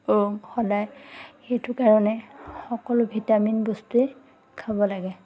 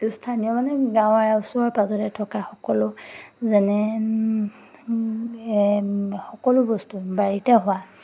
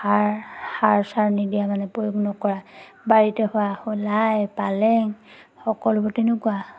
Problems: none marked